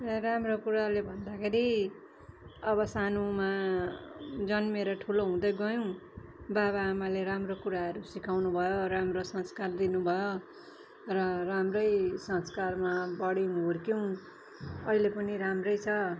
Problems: background sounds at intervals